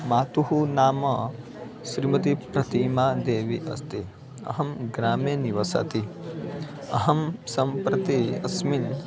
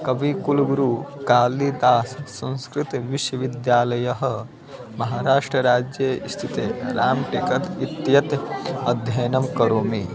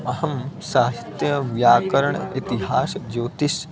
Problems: constant background noise, continuous background conversations